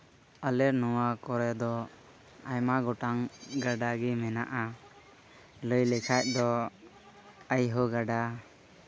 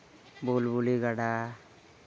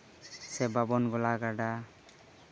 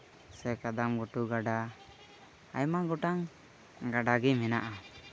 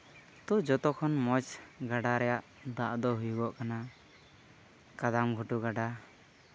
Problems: constant background noise